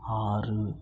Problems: low volume